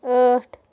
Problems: background sounds at intervals